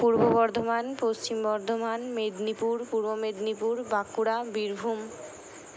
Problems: none marked